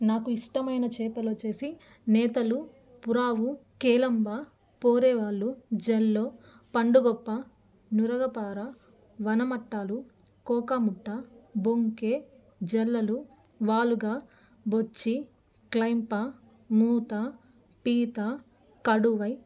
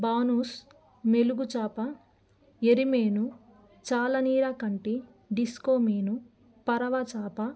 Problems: none marked